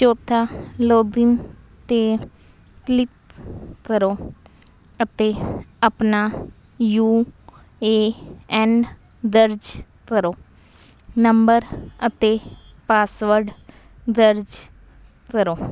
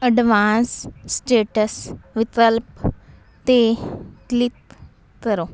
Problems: constant background noise